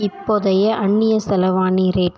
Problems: background conversations at intervals